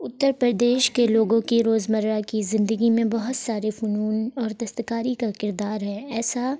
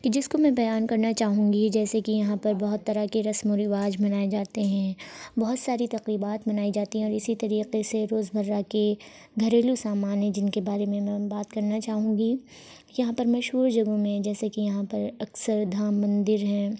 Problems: constant background noise